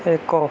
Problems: constant background noise